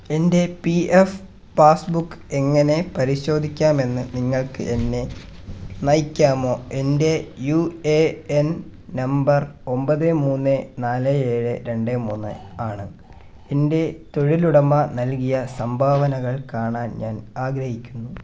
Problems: none marked